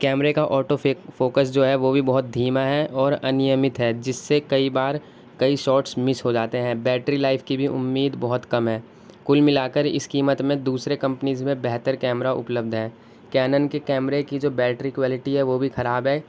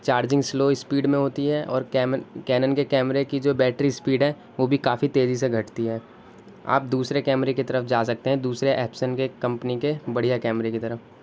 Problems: constant background noise